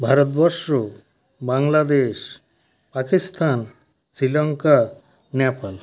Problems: constant background noise, background conversations at intervals